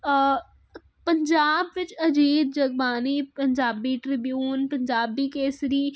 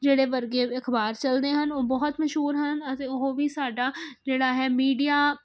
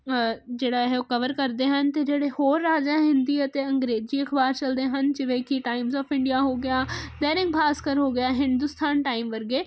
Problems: constant background noise